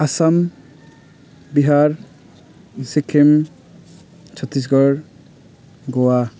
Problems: background conversations at intervals